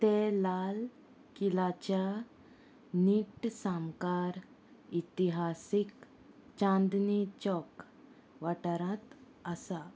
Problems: constant background noise